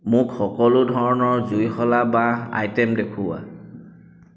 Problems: none marked